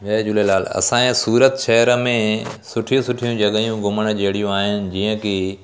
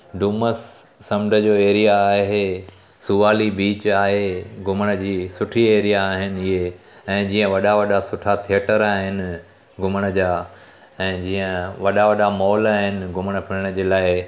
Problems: constant background noise